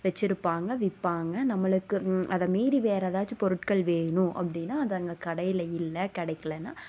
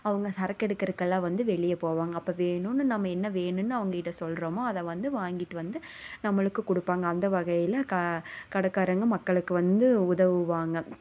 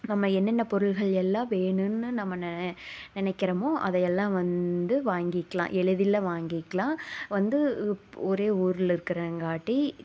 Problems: none marked